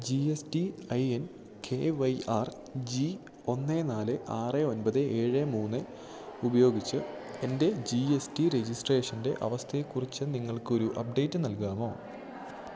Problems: low volume